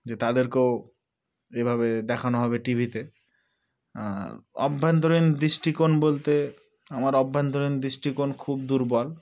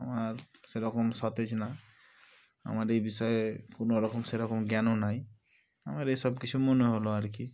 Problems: background sounds at intervals